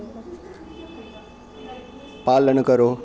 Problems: constant background noise